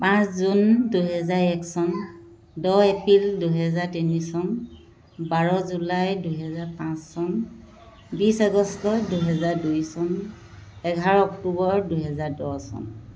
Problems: continuous background conversations